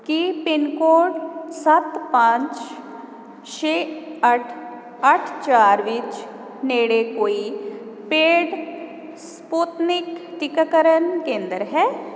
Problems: constant background noise